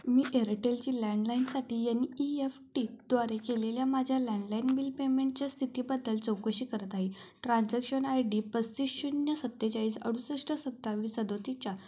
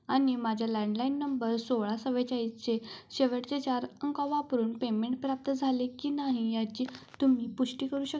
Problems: none marked